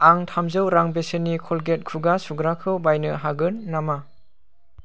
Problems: none marked